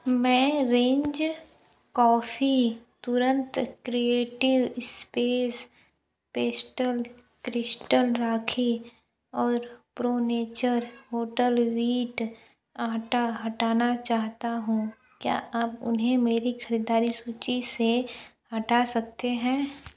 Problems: low volume